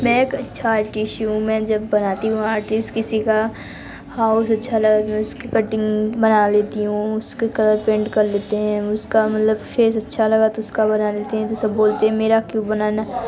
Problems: constant background noise, continuous background conversations